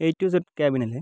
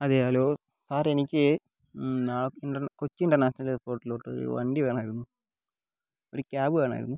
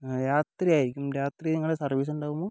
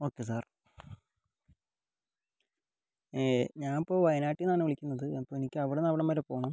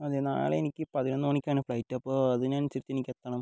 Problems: low volume